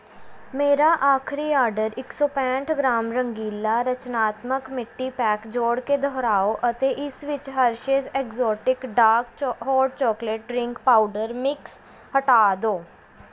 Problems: constant background noise